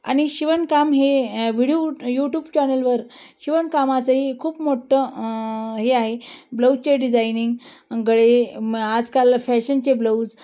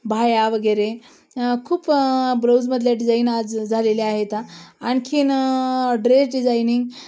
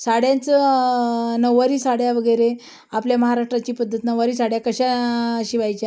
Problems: none marked